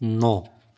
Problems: none marked